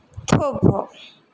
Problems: background sounds at intervals